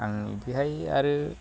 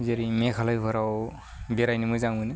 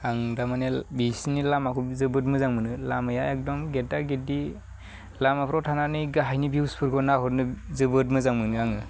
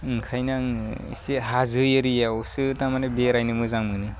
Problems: none marked